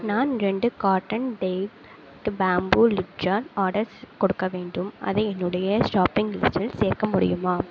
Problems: background sounds at intervals